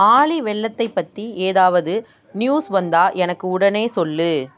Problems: constant background noise